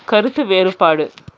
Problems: none marked